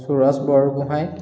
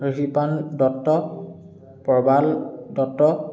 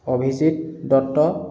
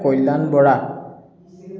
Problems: continuous background conversations, echo